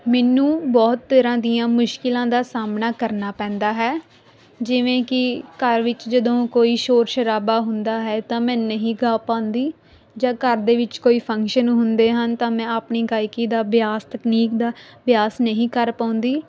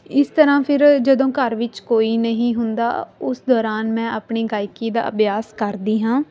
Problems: background sounds at intervals